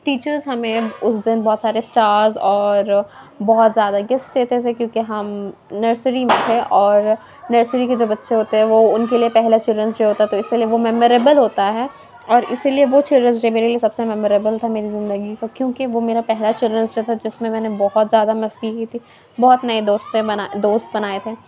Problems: constant background noise